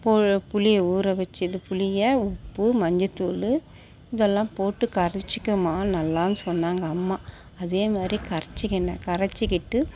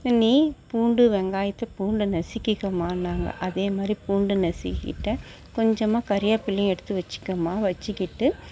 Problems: background sounds at intervals